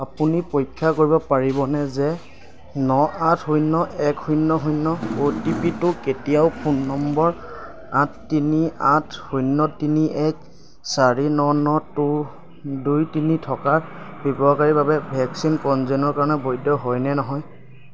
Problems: constant background noise